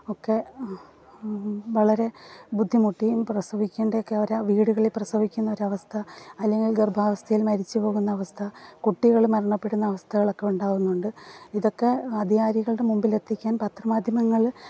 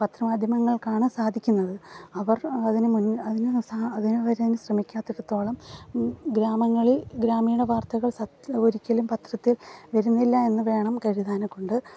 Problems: background sounds at intervals